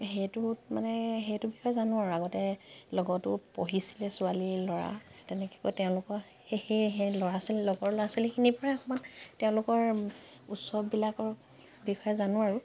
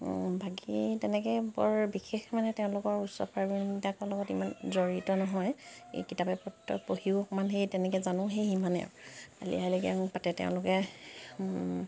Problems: background sounds at intervals